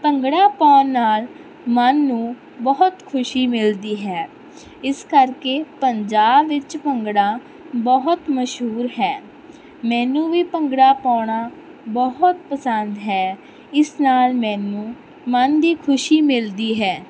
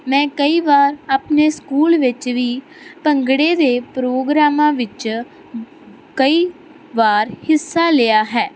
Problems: constant background noise